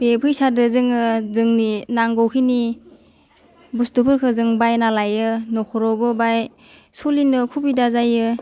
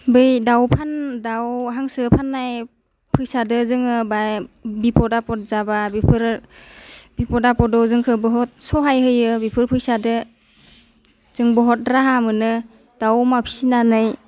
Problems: constant background noise